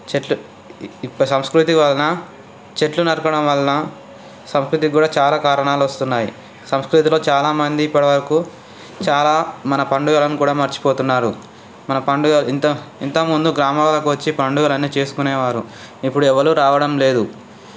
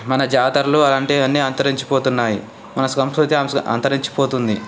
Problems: constant background noise, background conversations at intervals